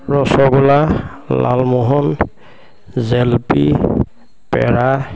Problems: constant background noise, background conversations at intervals